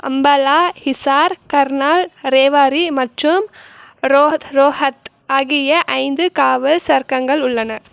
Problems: none marked